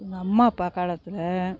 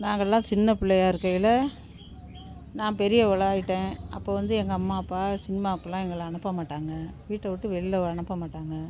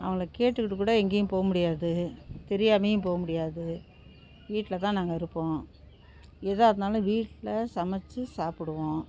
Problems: none marked